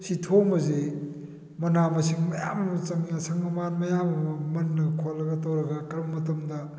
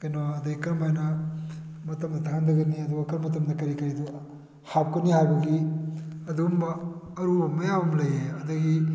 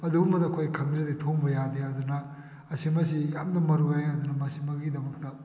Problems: background sounds at intervals